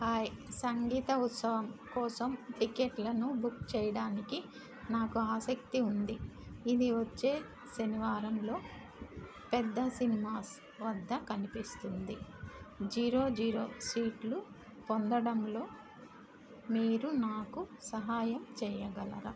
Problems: constant background noise